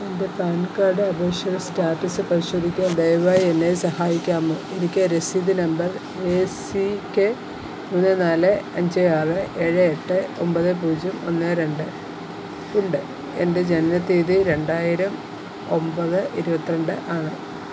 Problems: constant background noise